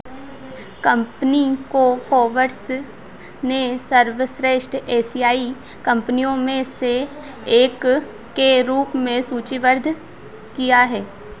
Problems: none marked